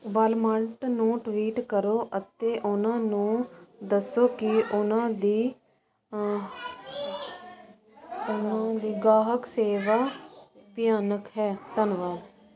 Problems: continuous background conversations